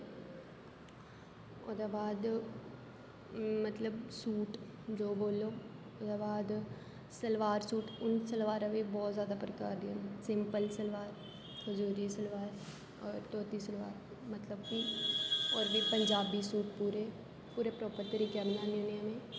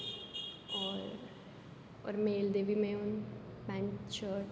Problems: low volume